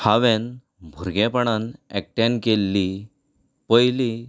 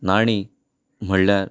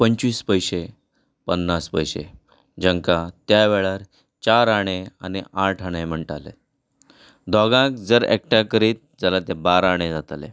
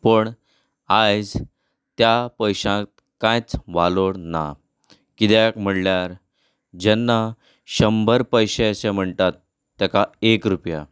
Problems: none marked